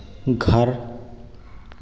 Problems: constant background noise